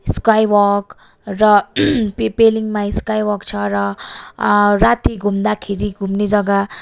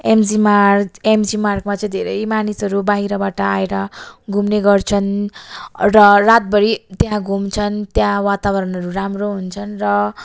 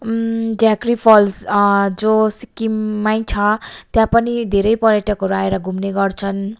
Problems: none marked